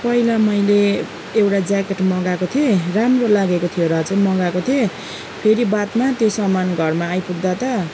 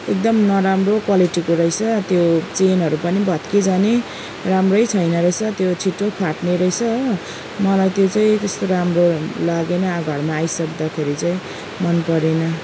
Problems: none marked